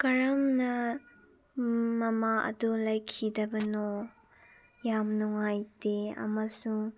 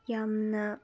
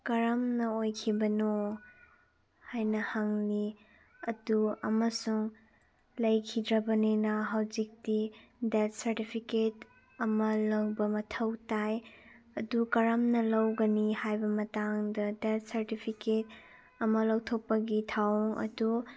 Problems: none marked